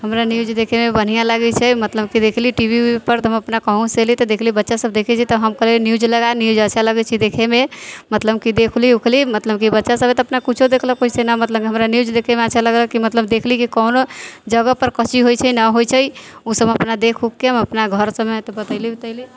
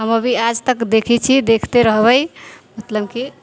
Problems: background conversations at intervals